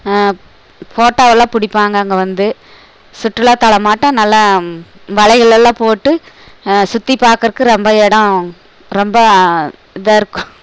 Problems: background sounds at intervals